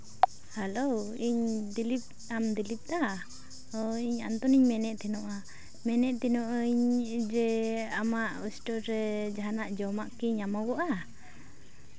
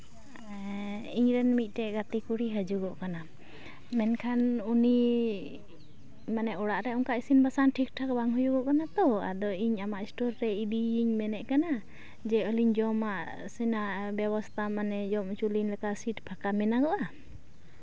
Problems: constant background noise